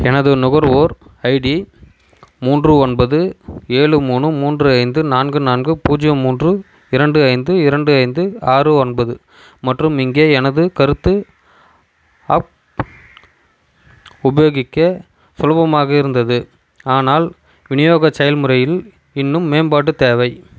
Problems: background sounds at intervals